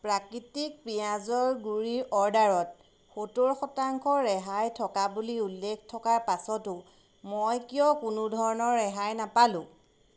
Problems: constant background noise